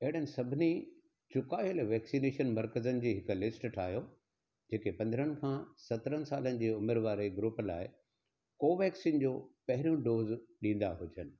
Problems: none marked